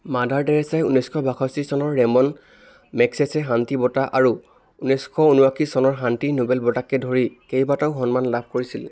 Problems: constant background noise, background conversations at intervals